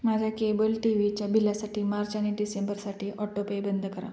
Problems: constant background noise